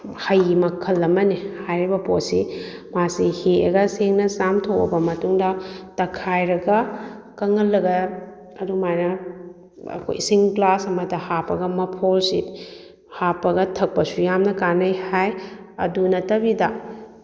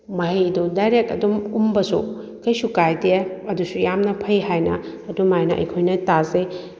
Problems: none marked